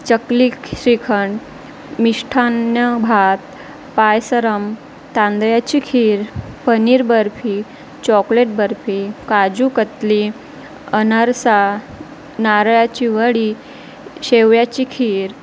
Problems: constant background noise